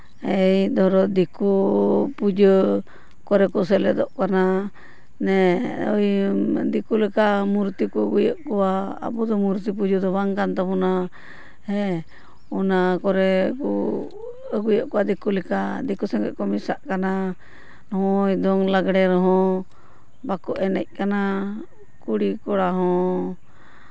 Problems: none marked